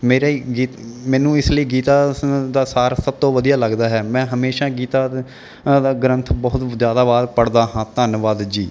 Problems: none marked